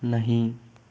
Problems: background sounds at intervals